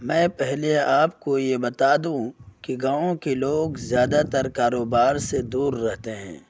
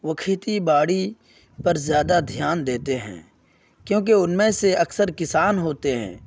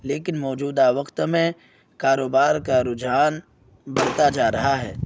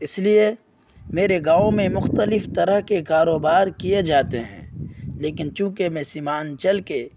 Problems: none marked